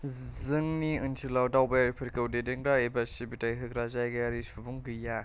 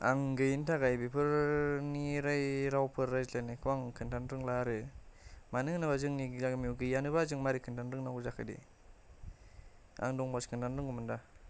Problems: none marked